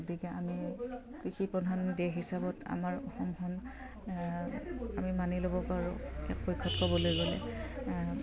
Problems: none marked